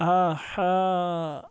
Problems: background sounds at intervals